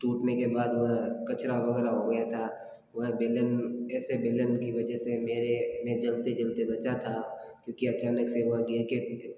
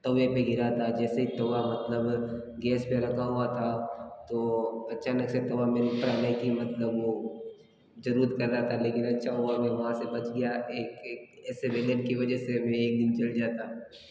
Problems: background sounds at intervals